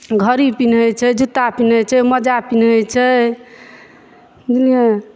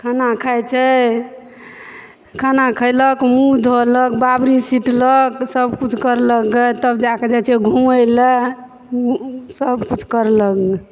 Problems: background sounds at intervals, background conversations at intervals